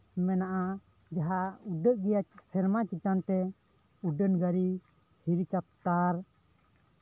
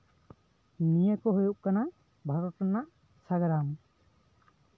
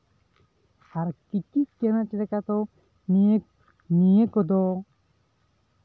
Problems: background conversations at intervals